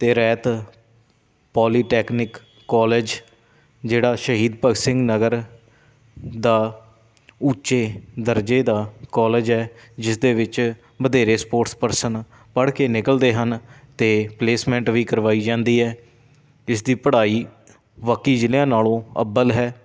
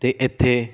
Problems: none marked